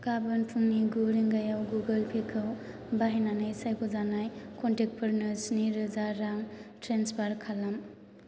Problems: constant background noise